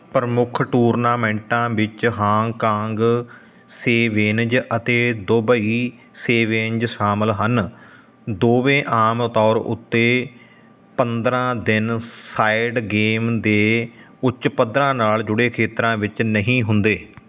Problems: constant background noise